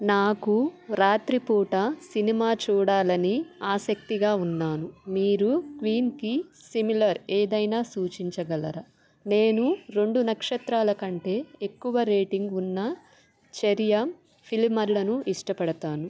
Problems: background sounds at intervals